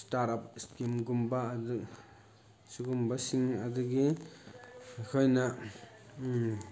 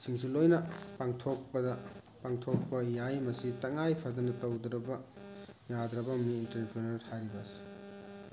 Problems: constant background noise, background conversations at intervals